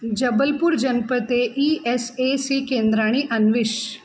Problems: constant background noise